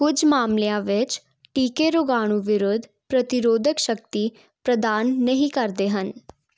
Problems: none marked